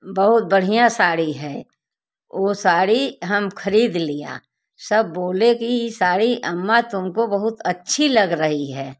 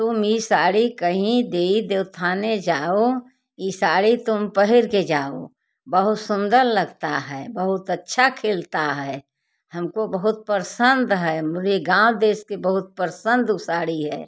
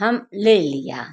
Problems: background sounds at intervals, background conversations at intervals